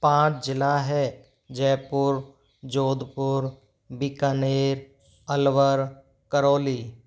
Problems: none marked